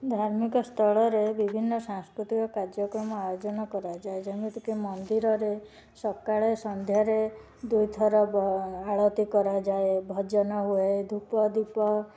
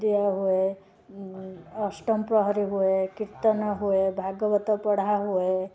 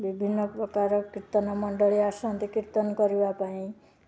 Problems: constant background noise, continuous background conversations